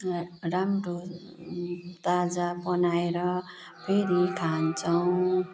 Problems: constant background noise